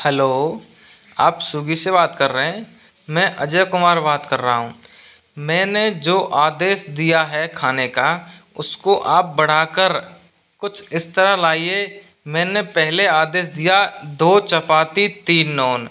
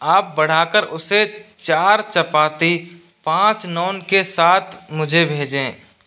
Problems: constant background noise